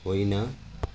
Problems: none marked